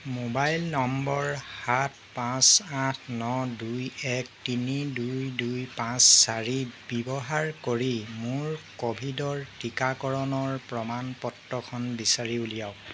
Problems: background sounds at intervals